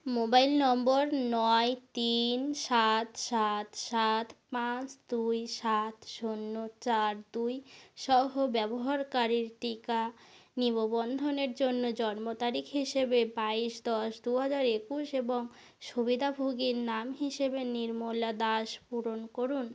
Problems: background sounds at intervals